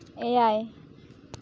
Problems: none marked